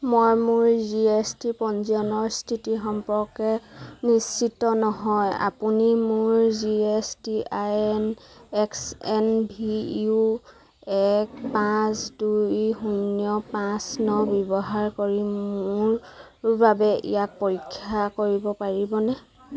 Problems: none marked